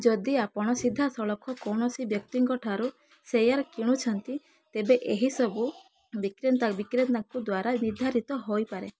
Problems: background sounds at intervals